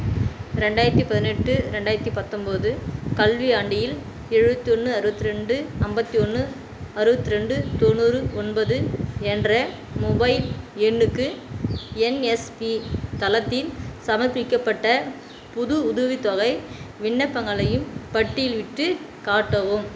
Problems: constant background noise